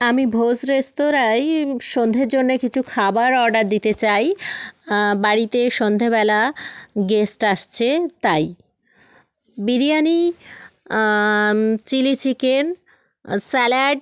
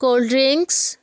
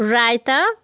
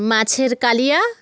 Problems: none marked